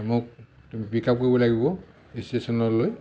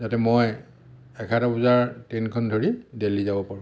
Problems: background sounds at intervals